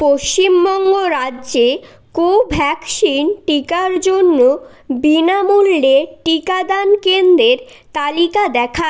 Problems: none marked